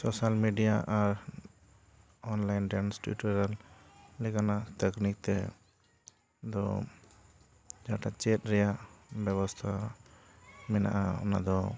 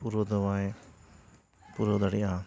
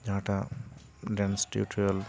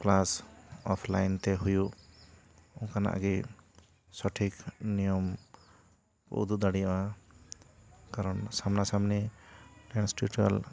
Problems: none marked